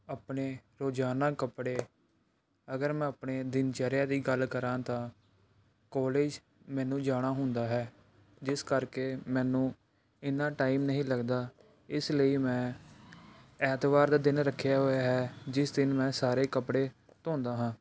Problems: background sounds at intervals